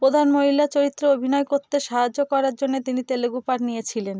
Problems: background sounds at intervals